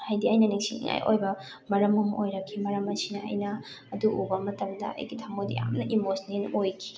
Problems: constant background noise, background conversations at intervals